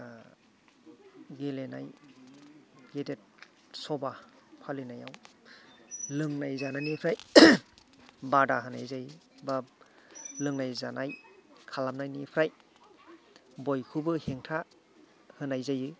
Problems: background sounds at intervals, background conversations at intervals